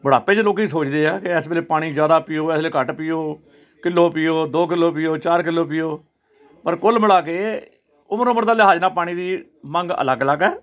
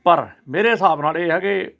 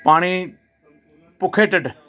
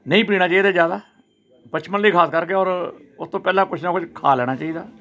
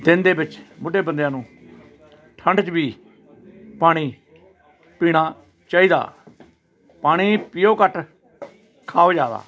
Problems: none marked